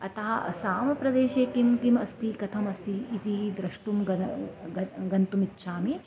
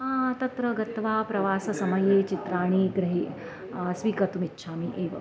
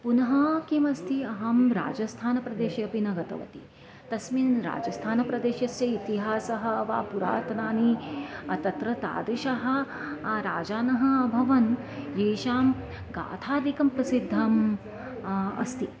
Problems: constant background noise, background conversations at intervals